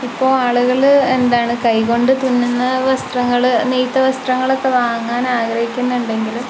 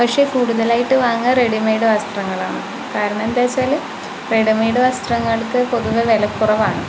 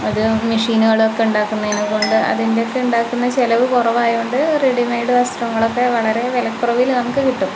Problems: constant background noise